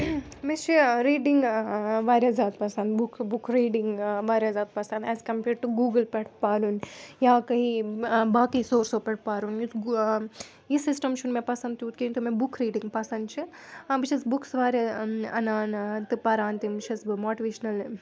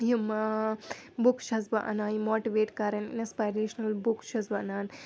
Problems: none marked